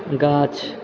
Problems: background sounds at intervals